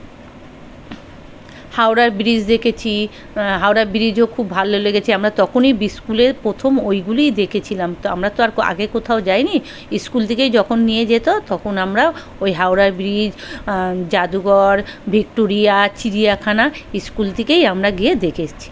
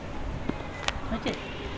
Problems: continuous background conversations